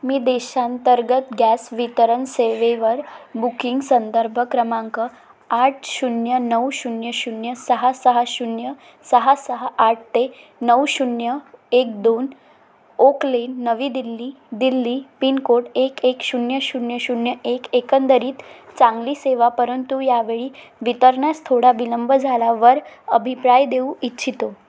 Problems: none marked